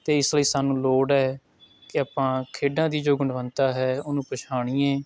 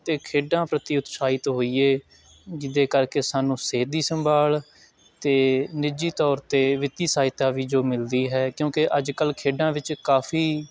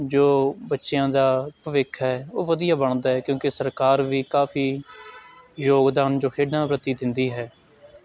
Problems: constant background noise